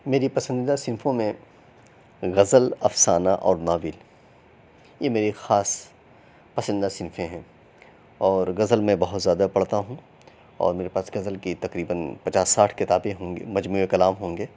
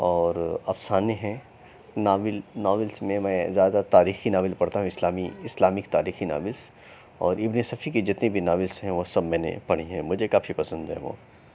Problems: none marked